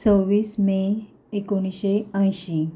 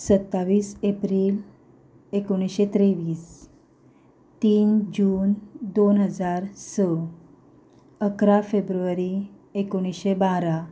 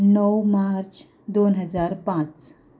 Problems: background sounds at intervals, background conversations at intervals